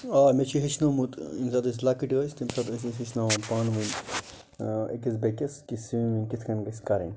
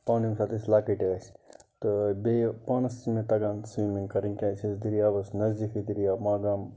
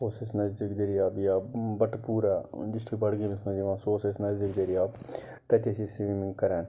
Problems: none marked